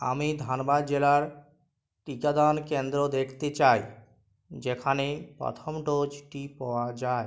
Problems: none marked